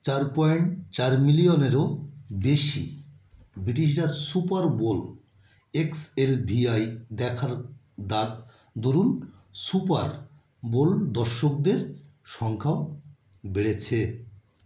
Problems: none marked